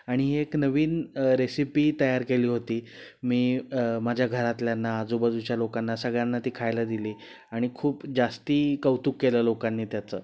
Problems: background sounds at intervals